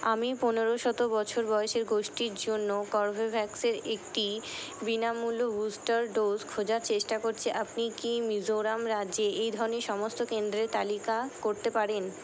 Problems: constant background noise